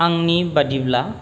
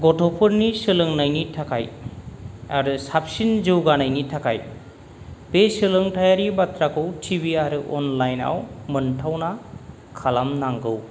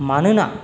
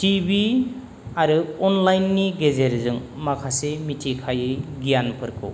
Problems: none marked